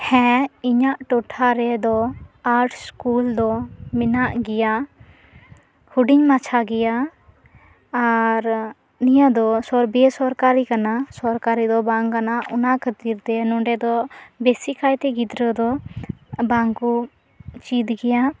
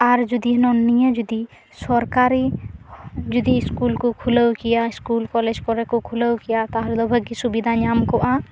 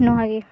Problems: none marked